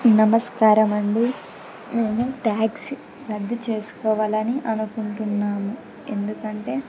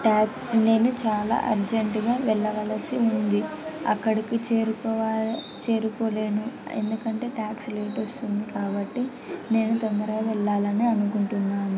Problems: constant background noise